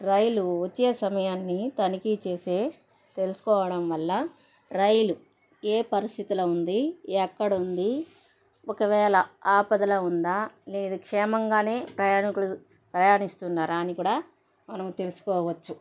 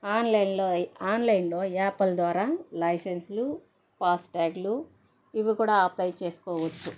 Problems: background sounds at intervals, background conversations at intervals